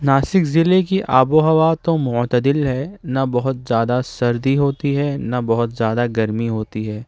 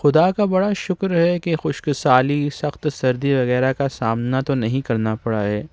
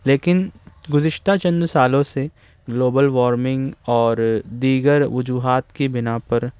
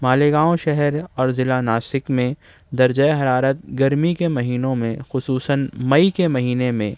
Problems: none marked